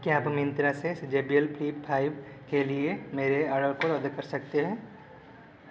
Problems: constant background noise